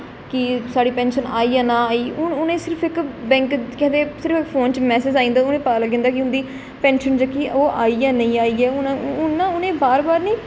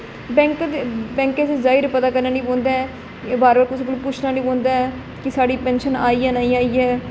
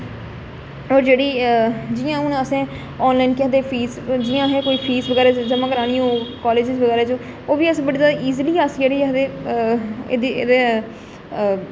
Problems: constant background noise